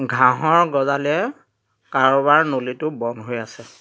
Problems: constant background noise